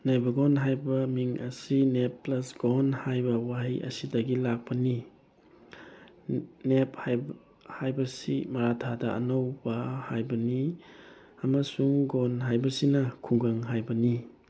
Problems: constant background noise